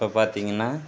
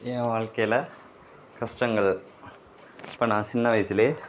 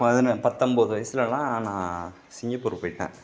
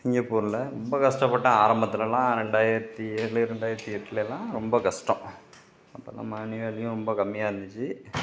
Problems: none marked